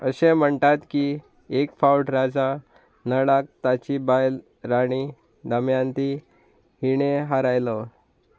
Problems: constant background noise